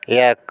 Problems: constant background noise